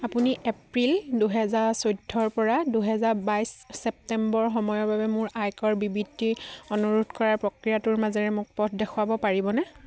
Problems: none marked